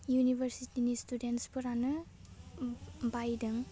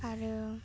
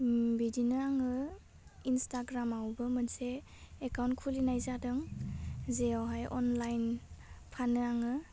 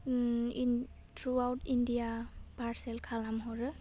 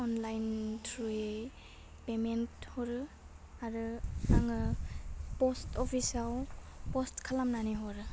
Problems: low volume